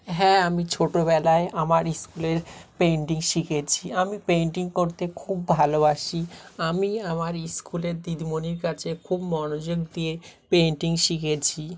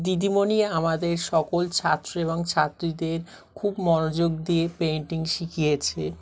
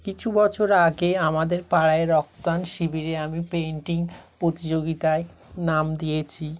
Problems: continuous background conversations